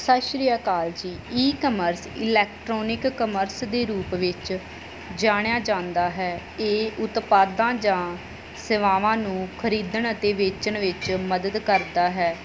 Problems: background sounds at intervals